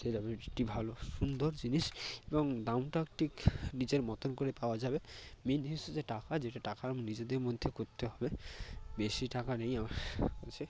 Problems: constant background noise